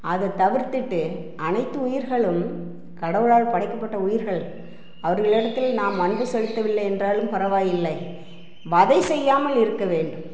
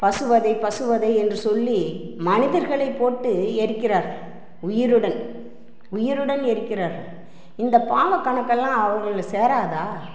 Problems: background sounds at intervals